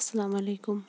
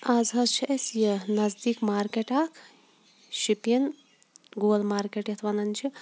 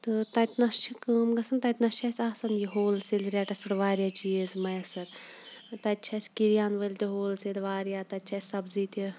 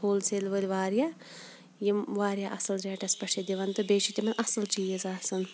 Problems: background sounds at intervals